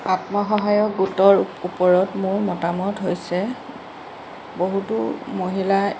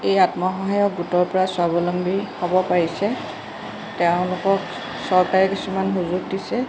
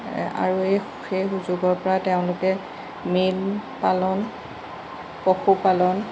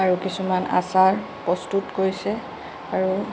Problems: constant background noise